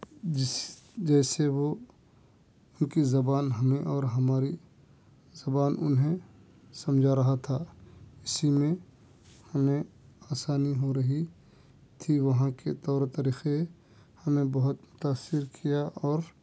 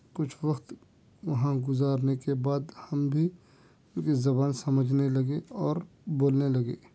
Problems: none marked